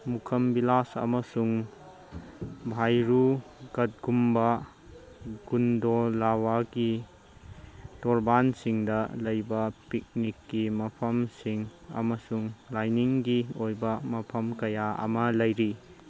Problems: none marked